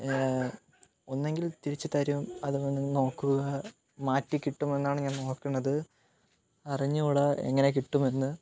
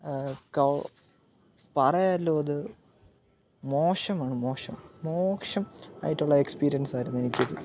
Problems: background sounds at intervals